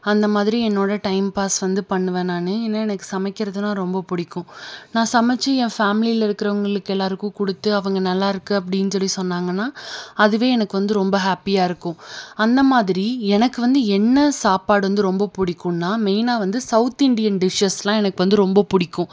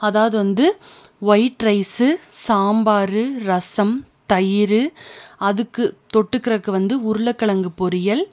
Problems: none marked